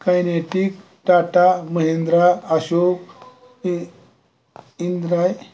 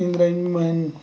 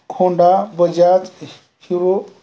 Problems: constant background noise